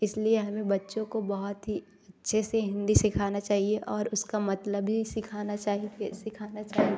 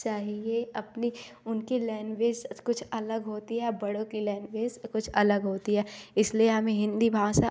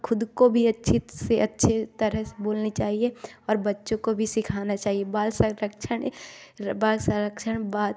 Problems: background sounds at intervals, background conversations at intervals